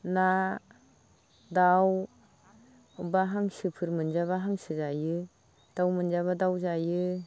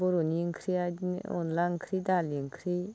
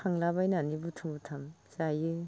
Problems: background conversations at intervals, low volume